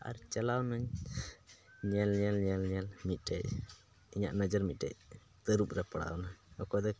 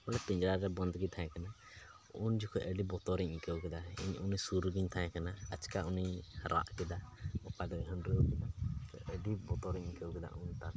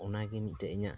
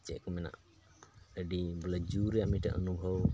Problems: constant background noise, low volume